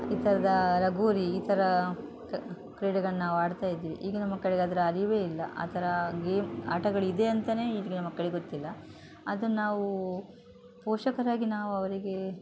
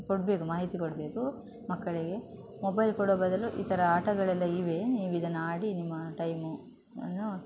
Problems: background sounds at intervals